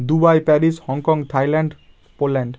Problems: constant background noise